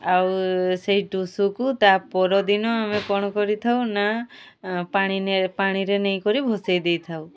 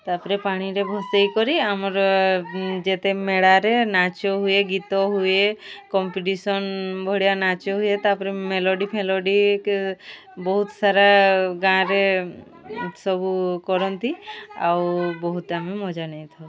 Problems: constant background noise, continuous background conversations